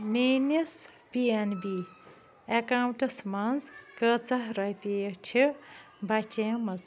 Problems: constant background noise